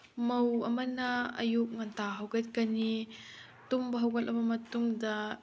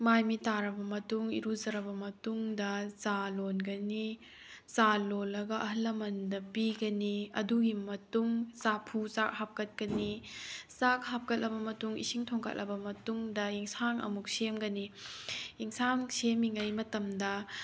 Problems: none marked